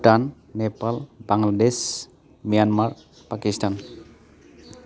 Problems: constant background noise